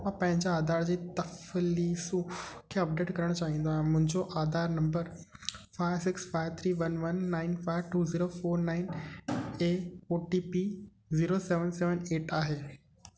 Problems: constant background noise